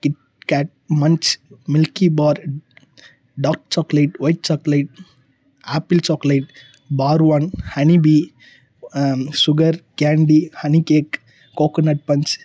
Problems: low volume